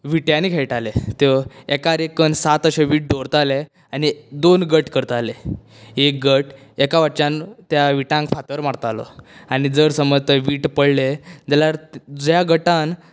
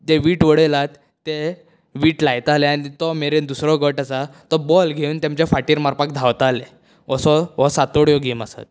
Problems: none marked